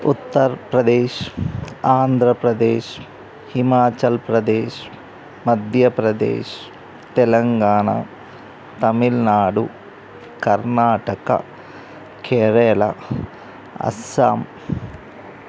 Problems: none marked